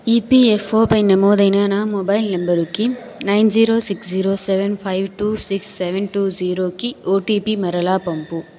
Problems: continuous background conversations